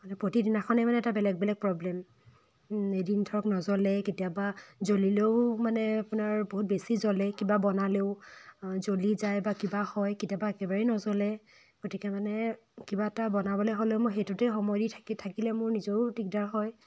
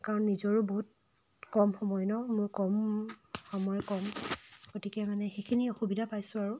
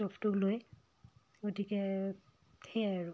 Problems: constant background noise